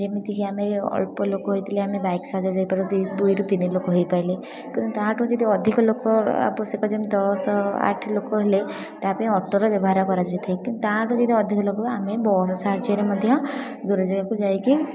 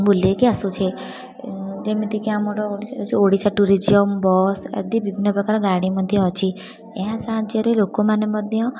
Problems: constant background noise, continuous background conversations